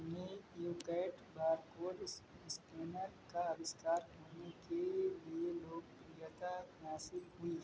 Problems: constant background noise